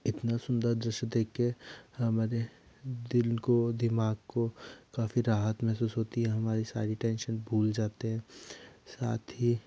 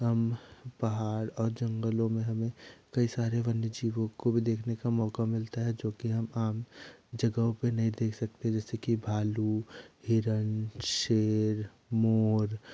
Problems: none marked